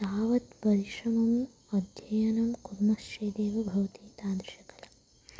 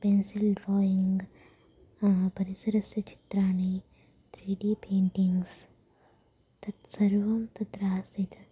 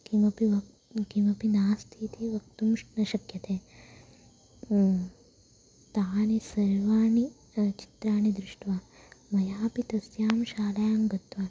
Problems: constant background noise